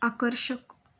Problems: background sounds at intervals